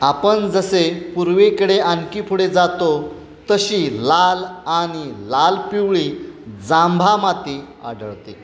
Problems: constant background noise, continuous background conversations